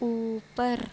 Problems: none marked